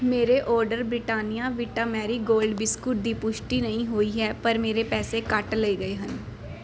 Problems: background sounds at intervals